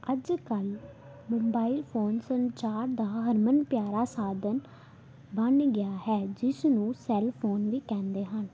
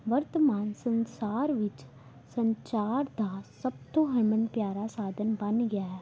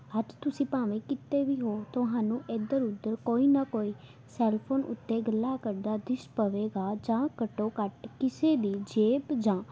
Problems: background conversations at intervals